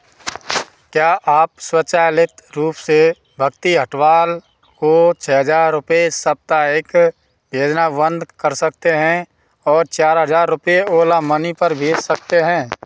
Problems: background sounds at intervals